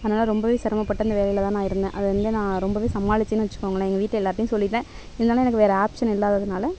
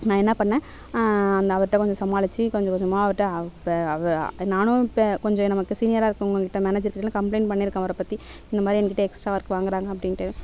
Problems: background sounds at intervals